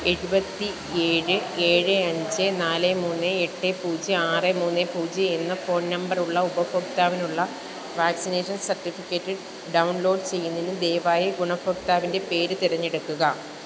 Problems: constant background noise